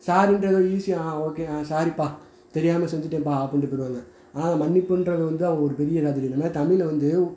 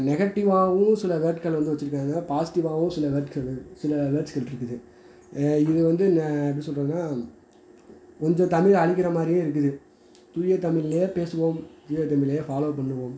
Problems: background conversations at intervals